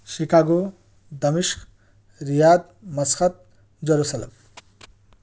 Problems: background sounds at intervals